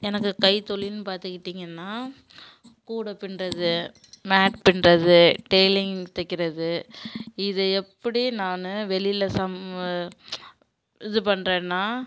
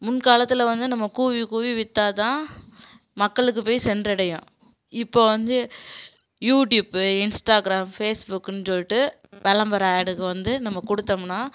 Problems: background sounds at intervals